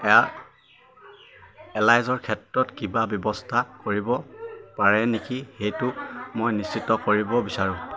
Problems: constant background noise, continuous background conversations